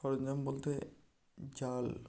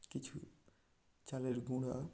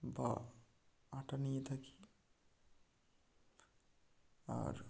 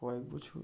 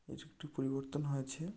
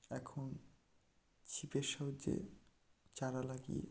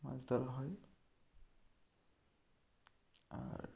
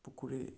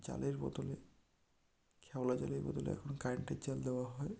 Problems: none marked